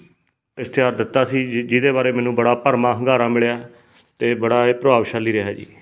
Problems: background sounds at intervals